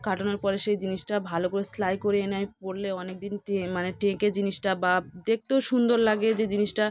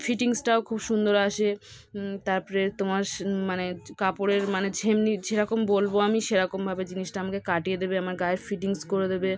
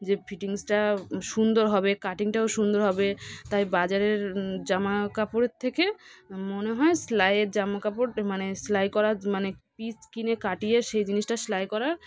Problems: background sounds at intervals, background conversations at intervals